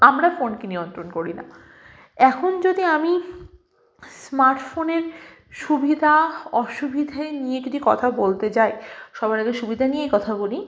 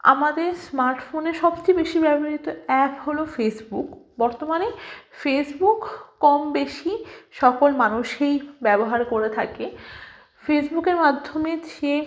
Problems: constant background noise